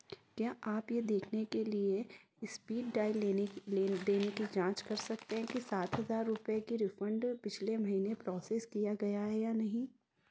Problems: background sounds at intervals